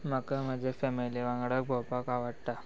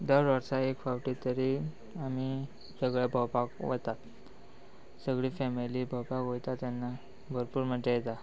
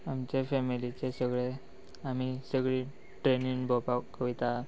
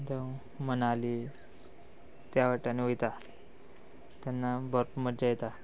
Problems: none marked